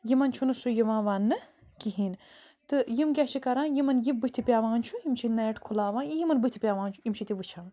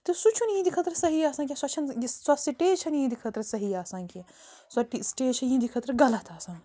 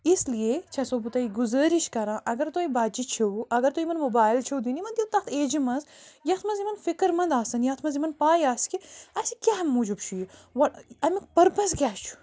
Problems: constant background noise